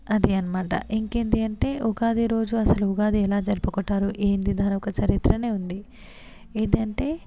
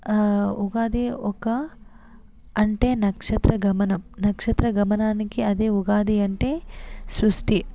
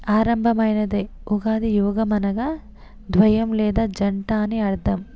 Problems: constant background noise, background conversations at intervals